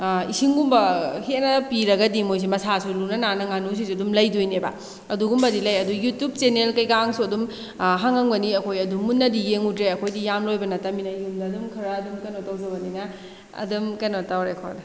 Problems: background sounds at intervals